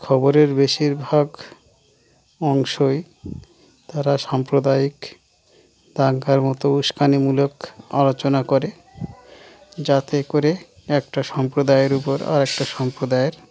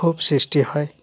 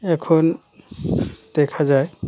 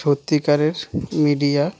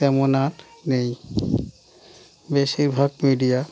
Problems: none marked